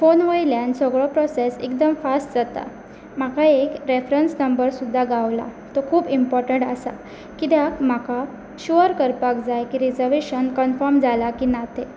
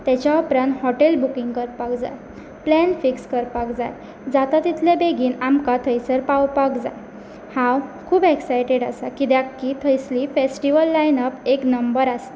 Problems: background sounds at intervals